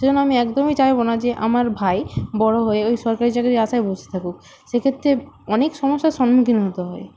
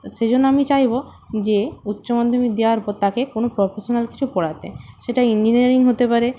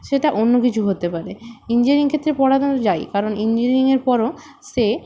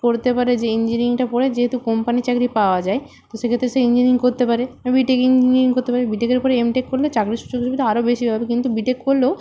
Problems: constant background noise